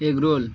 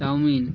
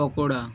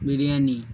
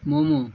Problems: constant background noise